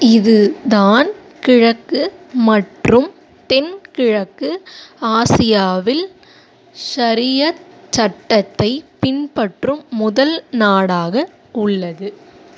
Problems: none marked